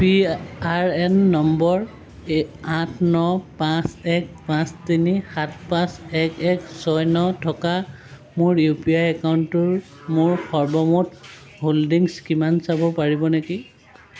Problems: constant background noise